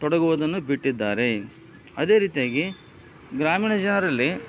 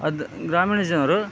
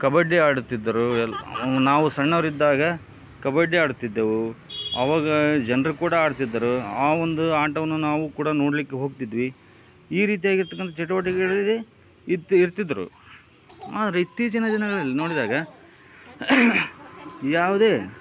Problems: background conversations at intervals